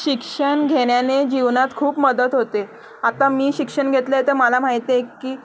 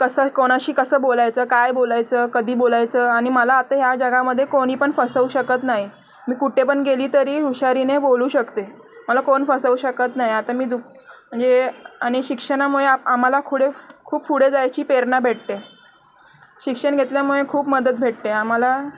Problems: background sounds at intervals